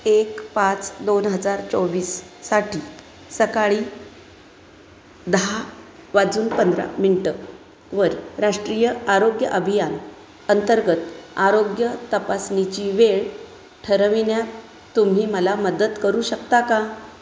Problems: none marked